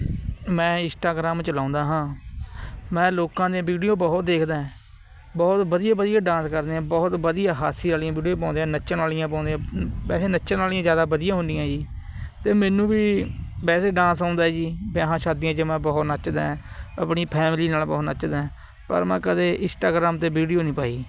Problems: constant background noise